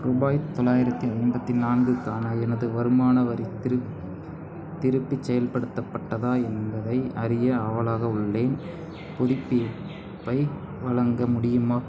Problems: background sounds at intervals